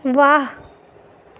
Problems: none marked